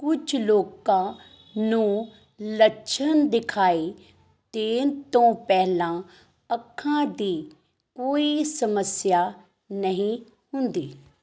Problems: background sounds at intervals